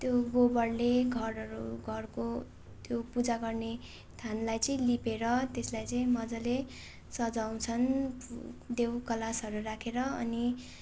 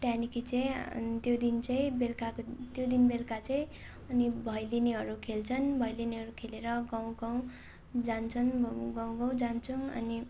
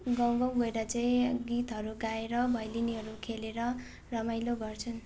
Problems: none marked